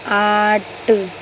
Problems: constant background noise